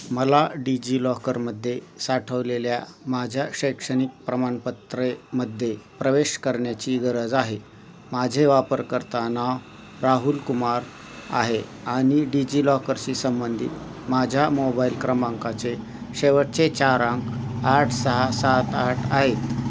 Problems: constant background noise